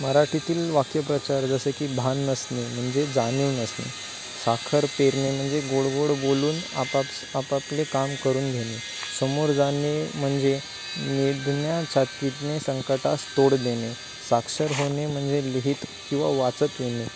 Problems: constant background noise